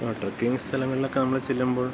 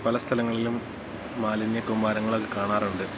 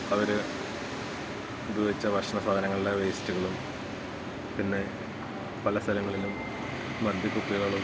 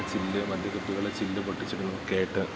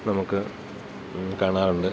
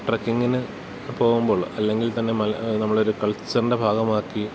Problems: constant background noise